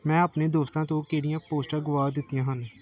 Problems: background sounds at intervals